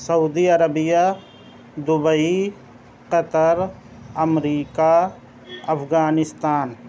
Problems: constant background noise